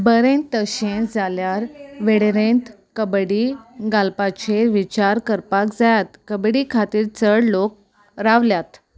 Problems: none marked